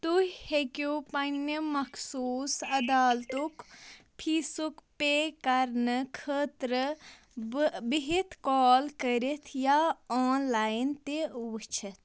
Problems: constant background noise